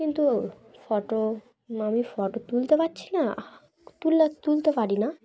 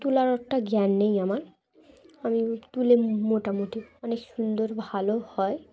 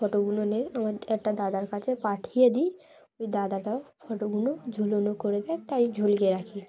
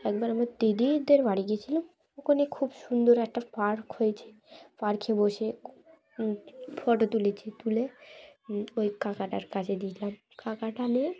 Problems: background sounds at intervals, background conversations at intervals